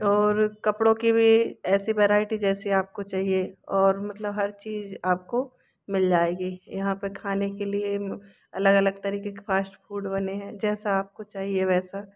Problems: none marked